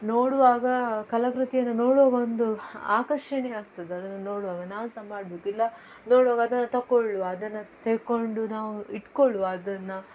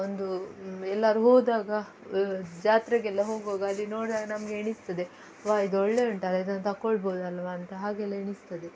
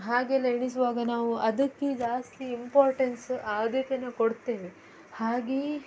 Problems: background sounds at intervals